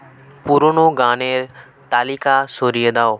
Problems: background conversations at intervals